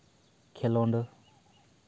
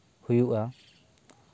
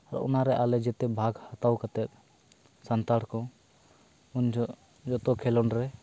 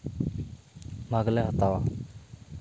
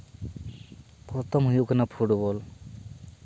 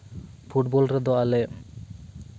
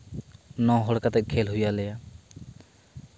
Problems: constant background noise